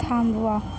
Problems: none marked